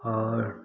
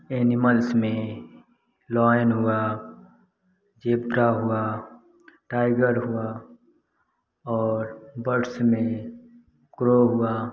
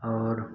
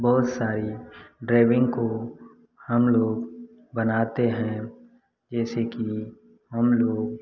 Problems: none marked